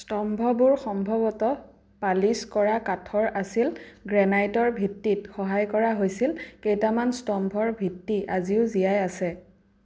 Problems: background sounds at intervals